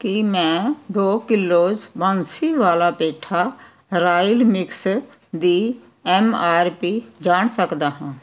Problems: background sounds at intervals